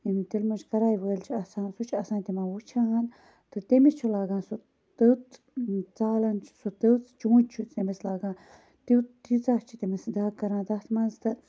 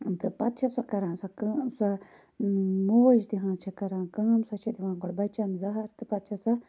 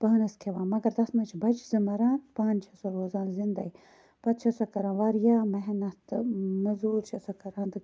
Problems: constant background noise